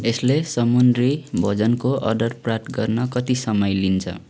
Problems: constant background noise